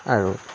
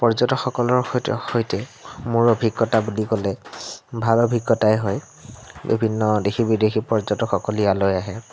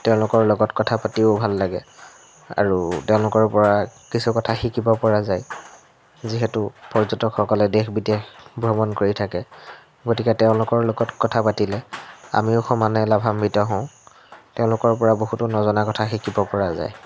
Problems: constant background noise